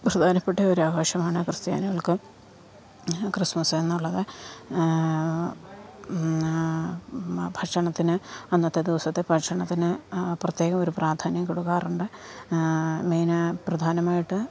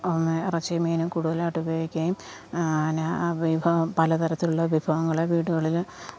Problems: constant background noise, low volume